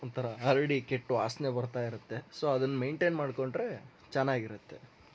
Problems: background sounds at intervals